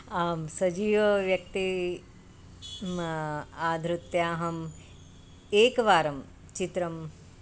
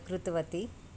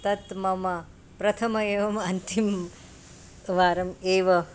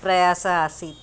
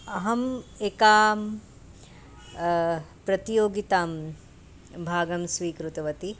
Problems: constant background noise